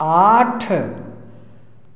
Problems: echo